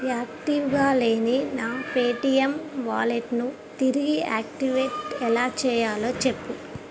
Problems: constant background noise